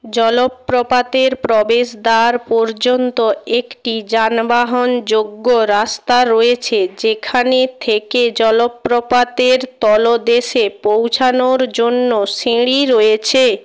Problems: none marked